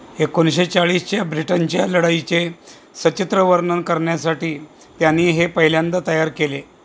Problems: constant background noise